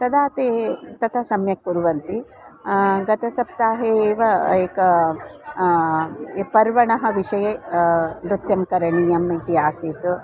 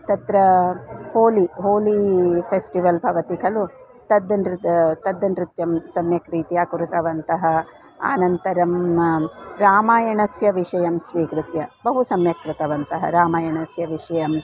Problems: constant background noise